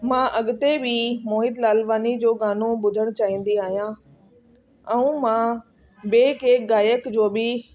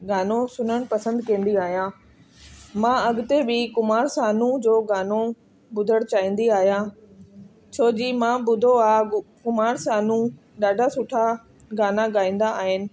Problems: constant background noise